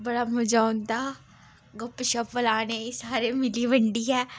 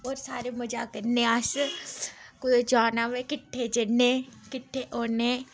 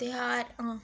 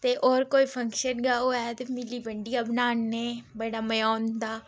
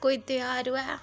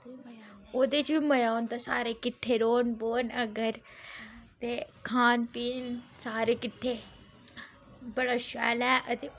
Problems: none marked